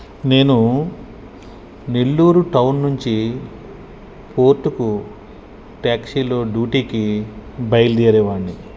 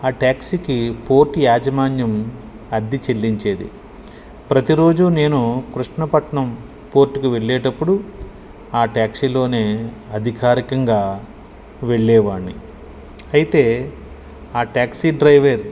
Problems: constant background noise